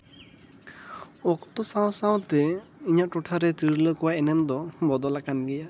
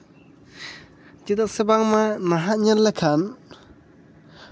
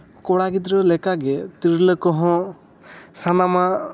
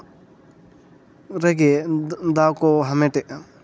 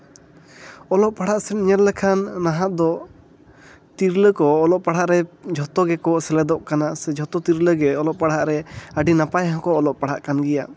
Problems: none marked